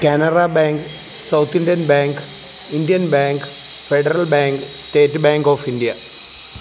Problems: constant background noise